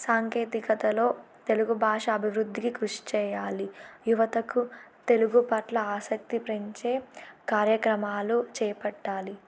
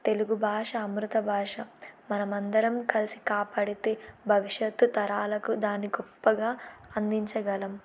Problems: none marked